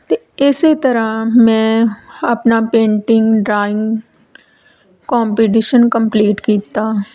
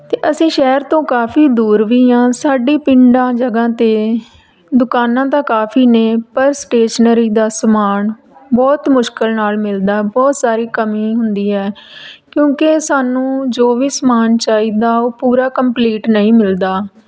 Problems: background sounds at intervals